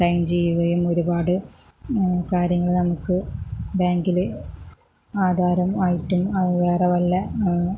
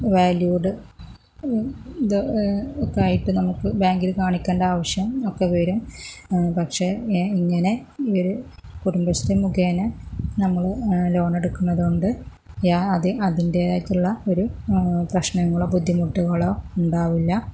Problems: low volume